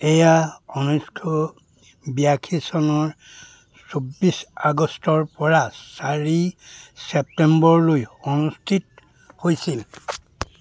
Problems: none marked